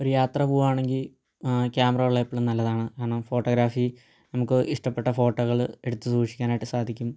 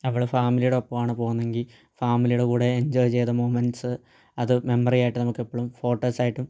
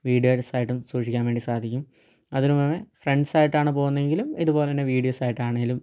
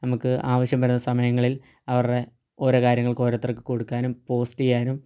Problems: low volume